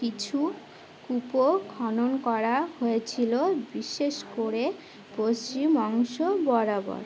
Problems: none marked